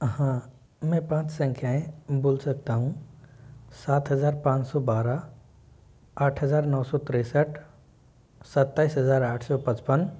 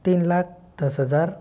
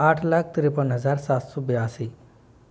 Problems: low volume